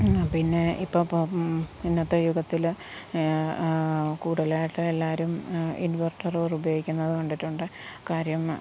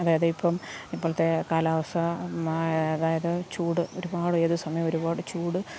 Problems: background sounds at intervals